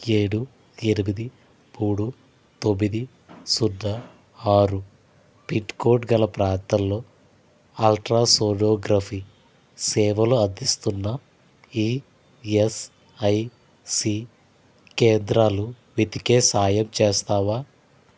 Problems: constant background noise